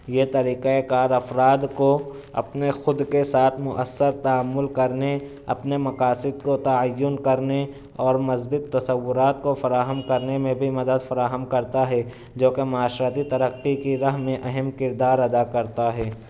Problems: none marked